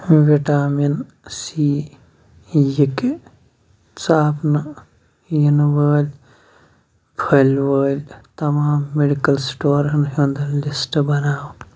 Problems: none marked